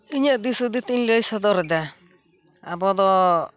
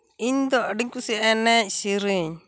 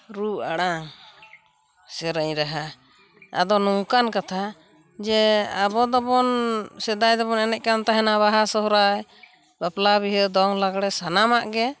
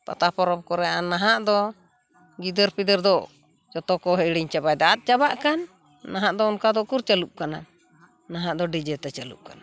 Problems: constant background noise